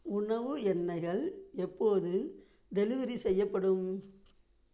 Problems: low volume